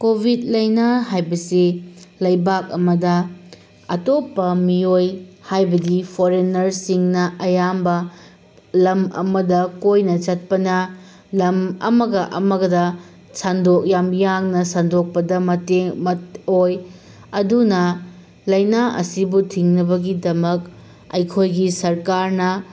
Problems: constant background noise